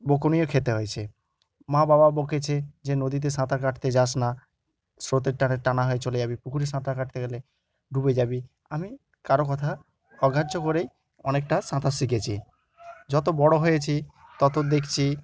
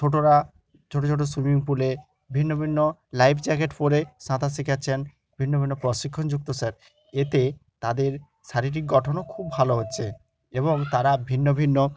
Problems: continuous background conversations